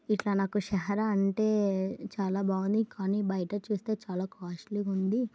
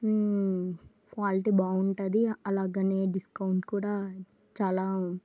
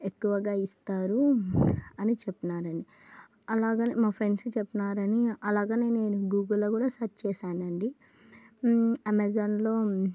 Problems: low volume